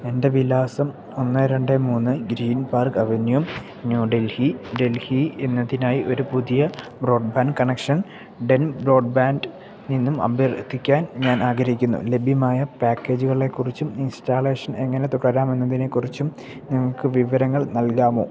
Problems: background sounds at intervals